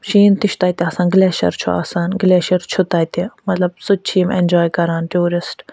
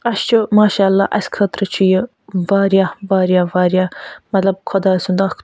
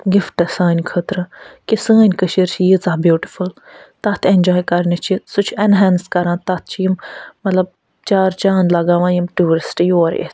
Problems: none marked